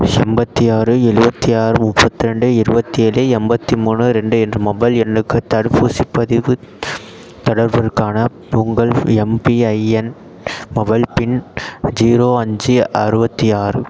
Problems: none marked